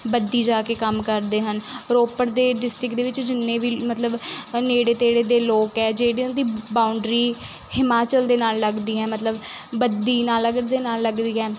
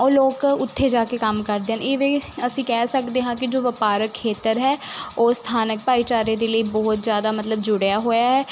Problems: constant background noise